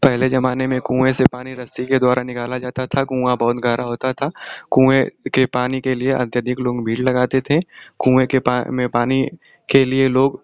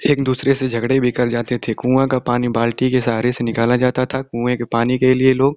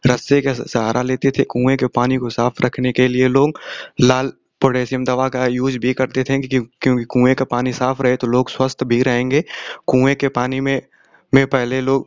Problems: none marked